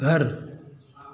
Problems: constant background noise